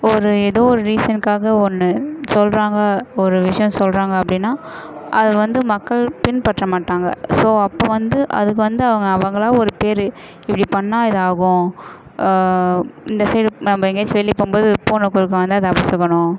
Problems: none marked